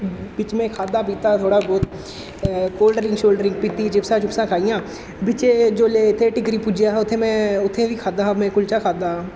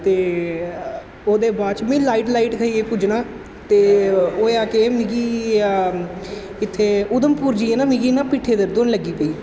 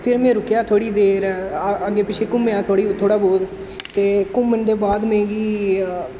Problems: constant background noise, echo